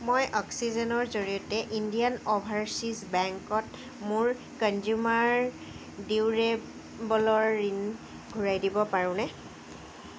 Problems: none marked